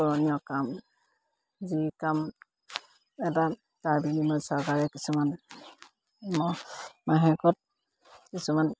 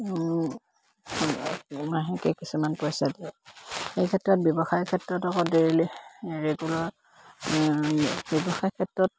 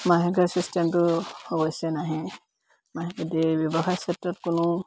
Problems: constant background noise